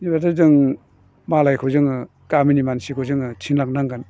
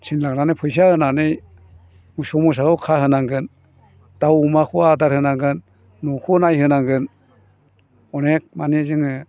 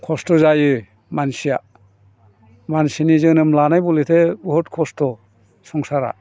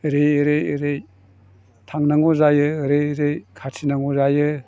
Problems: low volume